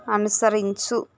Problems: constant background noise